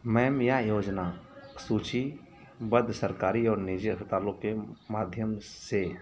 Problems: none marked